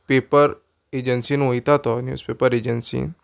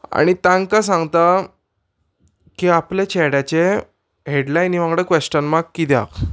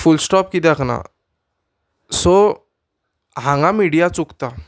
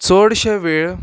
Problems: none marked